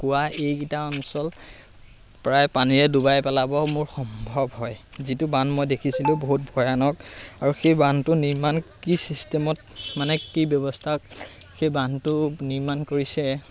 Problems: constant background noise